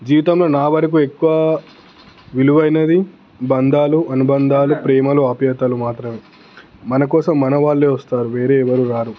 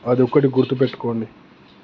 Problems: constant background noise